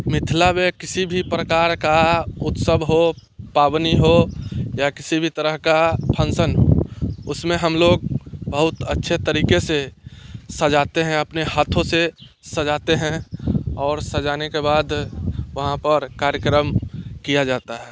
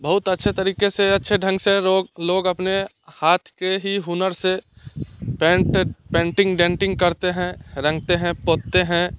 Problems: none marked